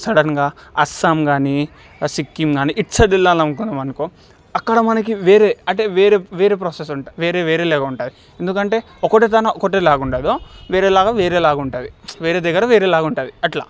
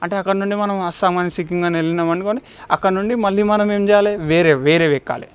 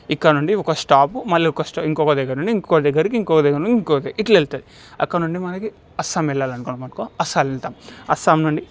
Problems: background sounds at intervals